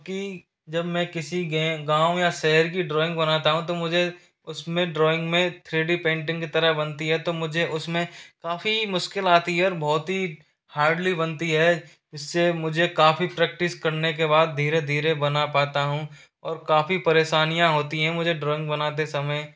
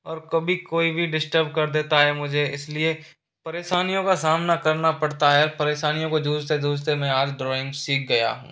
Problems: constant background noise